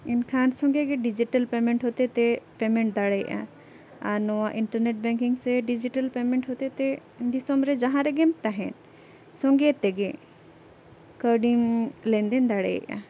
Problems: background sounds at intervals